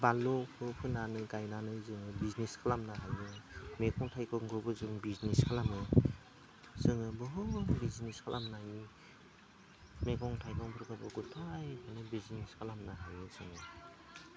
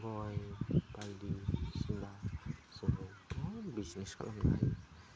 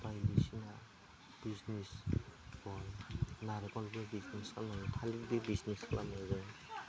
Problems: constant background noise, low volume